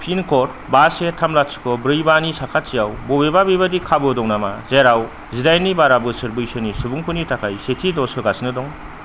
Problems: constant background noise